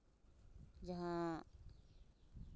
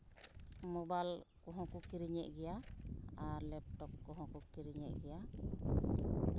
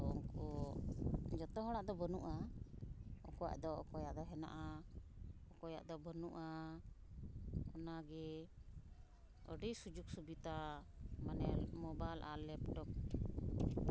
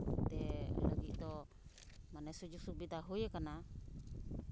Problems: constant background noise